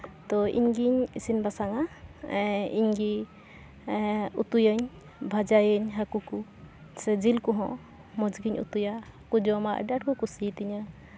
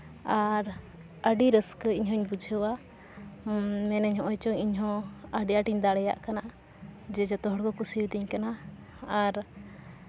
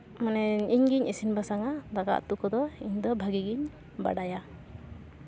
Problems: constant background noise, background conversations at intervals